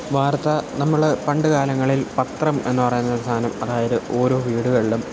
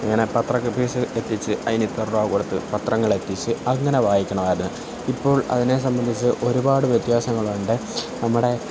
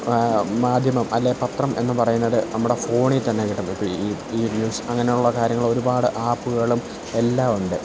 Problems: none marked